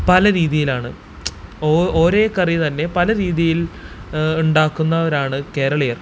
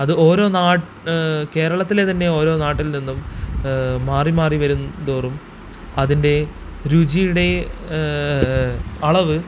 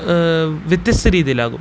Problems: constant background noise